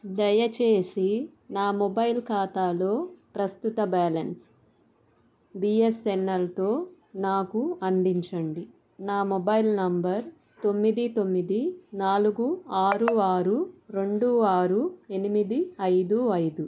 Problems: none marked